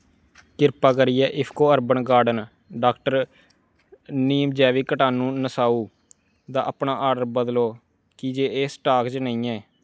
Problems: background sounds at intervals